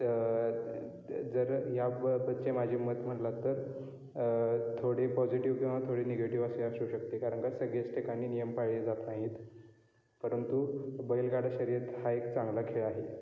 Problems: constant background noise, background conversations at intervals